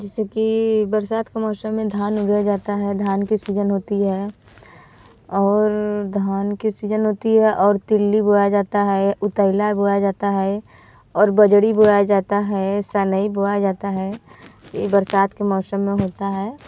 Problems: background sounds at intervals